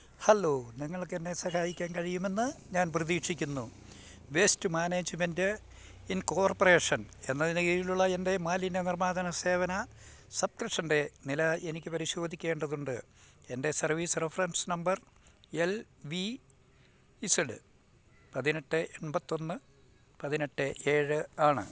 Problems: none marked